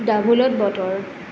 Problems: constant background noise